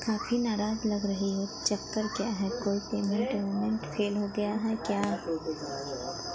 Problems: none marked